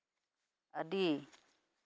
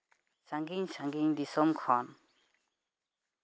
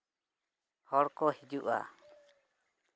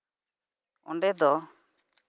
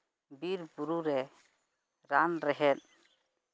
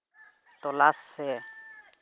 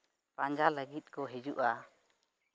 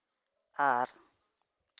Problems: none marked